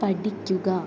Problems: none marked